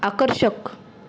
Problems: constant background noise